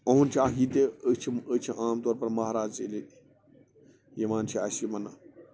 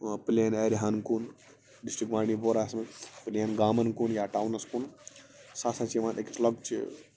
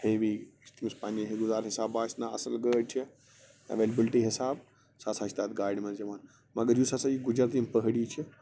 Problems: constant background noise